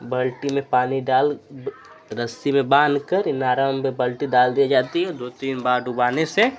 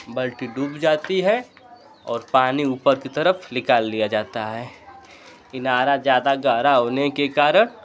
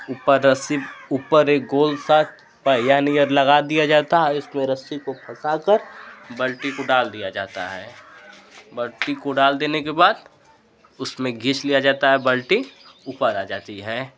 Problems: constant background noise